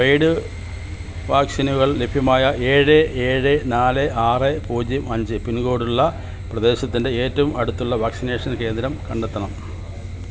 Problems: constant background noise